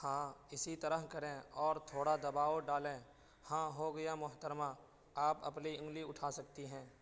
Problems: constant background noise, low volume